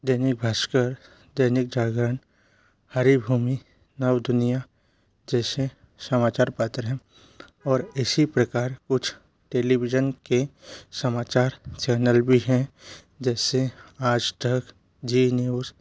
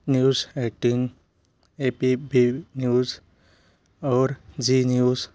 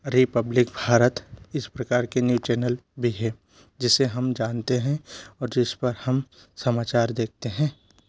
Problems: constant background noise